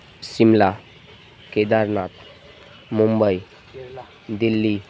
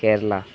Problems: constant background noise